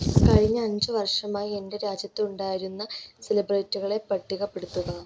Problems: none marked